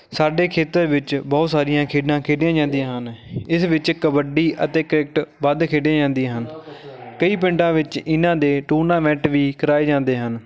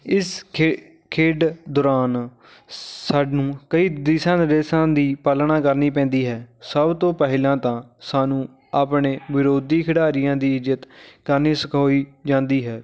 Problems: background conversations at intervals